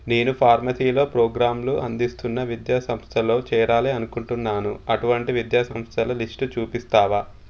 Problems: constant background noise